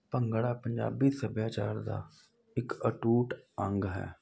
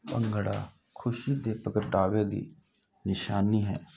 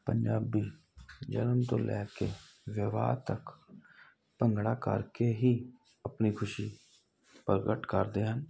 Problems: constant background noise